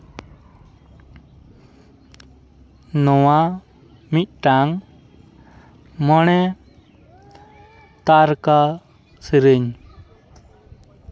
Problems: none marked